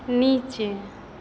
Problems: none marked